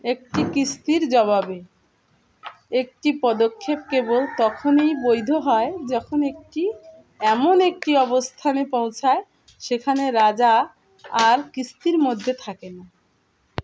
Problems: constant background noise